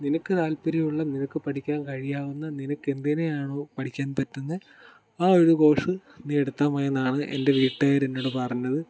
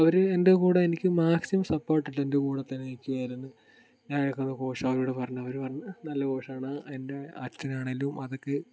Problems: background sounds at intervals